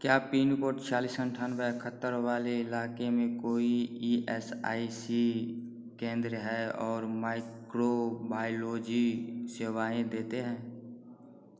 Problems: background sounds at intervals